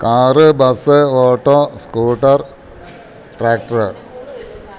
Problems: background sounds at intervals